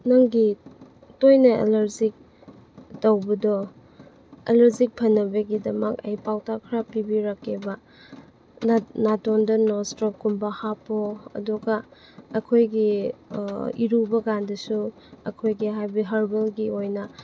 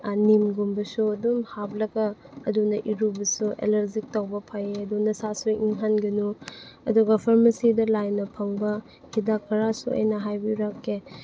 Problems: constant background noise